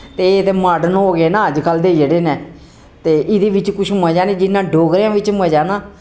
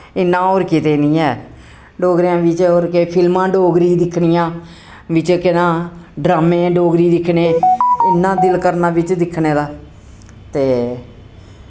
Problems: none marked